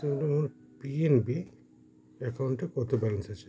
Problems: continuous background conversations